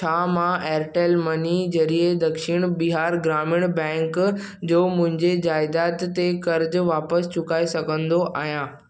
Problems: none marked